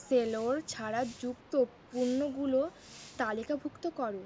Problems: constant background noise